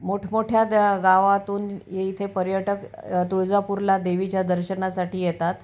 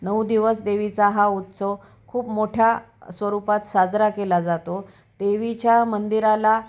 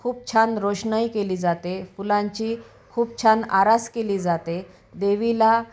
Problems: background sounds at intervals, background conversations at intervals